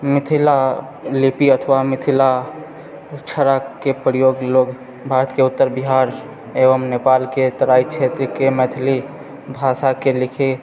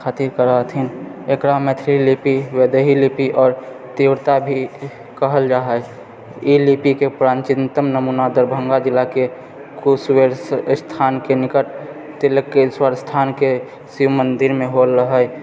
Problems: none marked